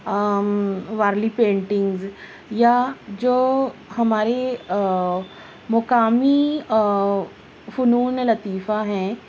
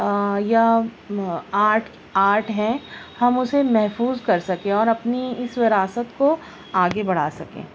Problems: none marked